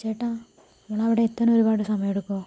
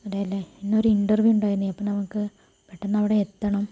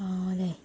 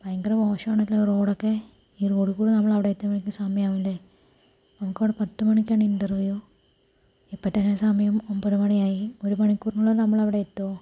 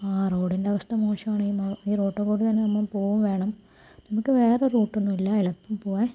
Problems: low volume